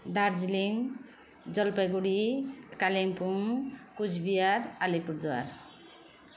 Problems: constant background noise